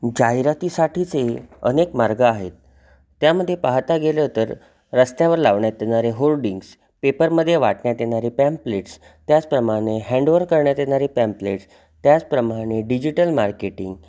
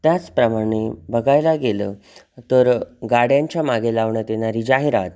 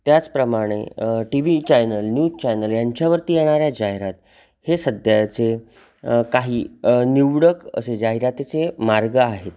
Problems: constant background noise, background conversations at intervals